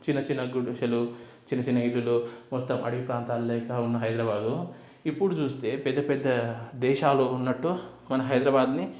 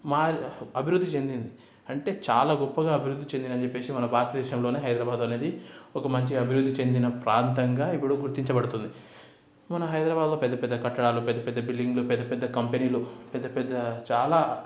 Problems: background sounds at intervals